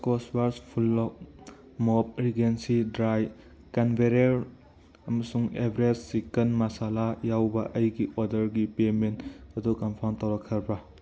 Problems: background conversations at intervals